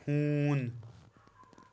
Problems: background sounds at intervals